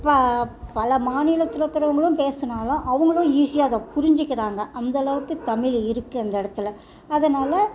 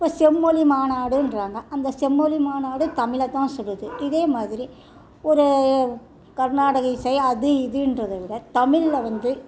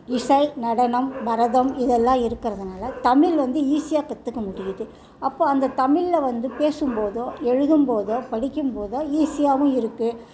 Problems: continuous background conversations